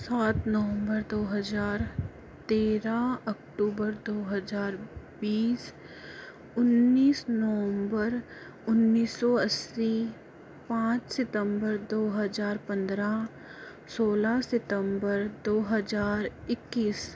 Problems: none marked